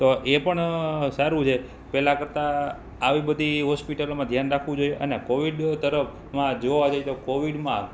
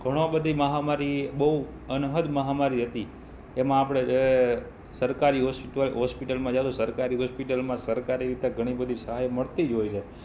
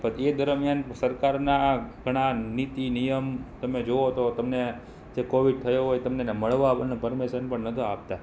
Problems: background sounds at intervals